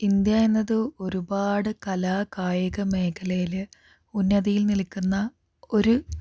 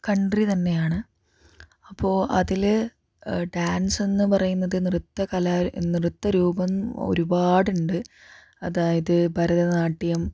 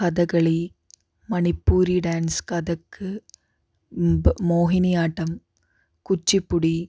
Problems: none marked